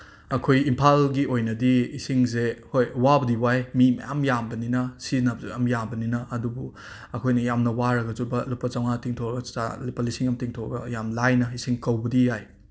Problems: background sounds at intervals